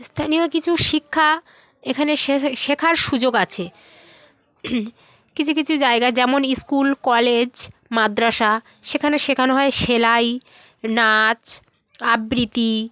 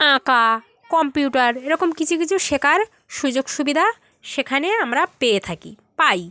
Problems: constant background noise, continuous background conversations